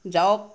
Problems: none marked